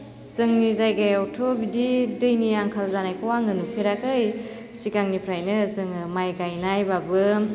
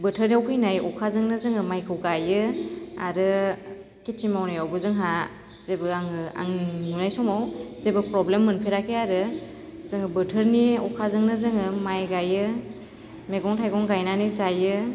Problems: constant background noise